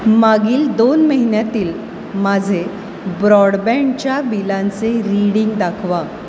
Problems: constant background noise